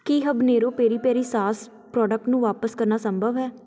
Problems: continuous background conversations